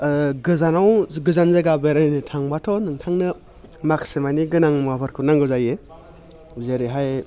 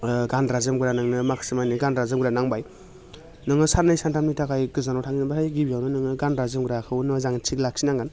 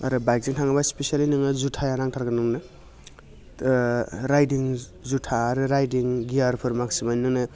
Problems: none marked